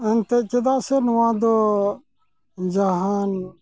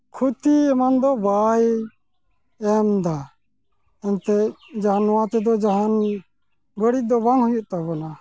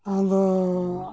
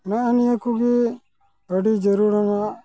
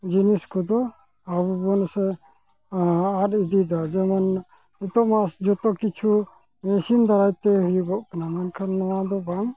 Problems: background sounds at intervals